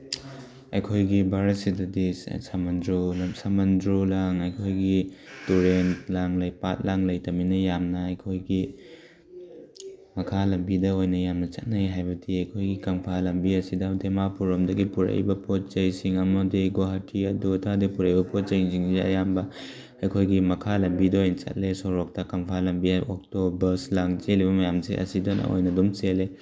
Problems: background sounds at intervals